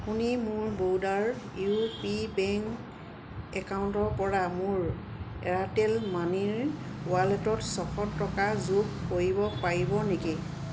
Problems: constant background noise, background conversations at intervals